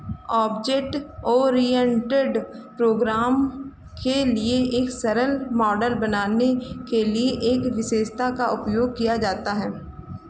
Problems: none marked